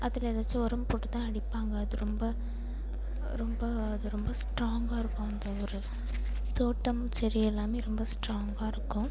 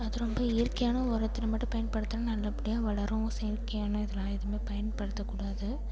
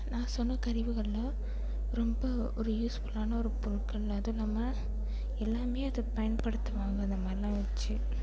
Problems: constant background noise